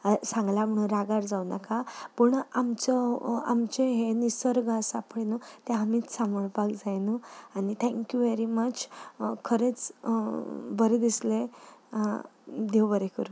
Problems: background sounds at intervals